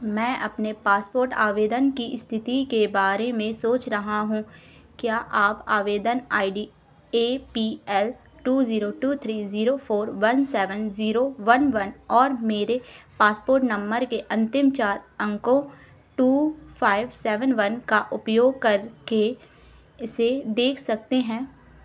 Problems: none marked